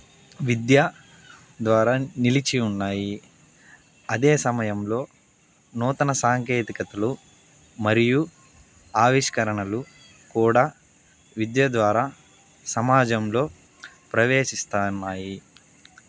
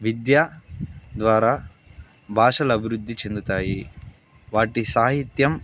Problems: constant background noise